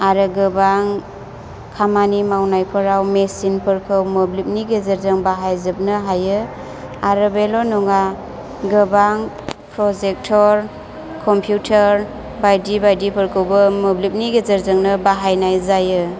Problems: constant background noise